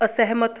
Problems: background sounds at intervals